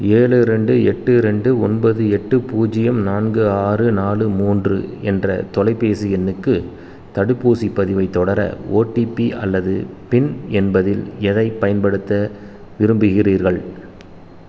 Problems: constant background noise